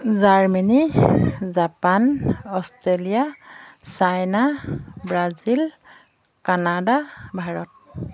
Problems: none marked